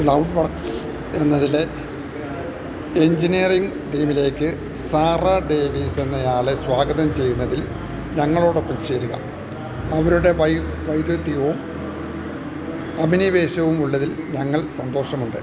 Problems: constant background noise